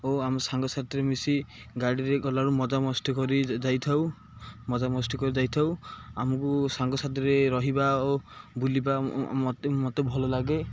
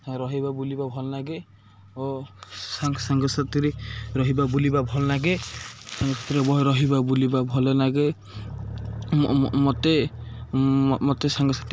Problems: none marked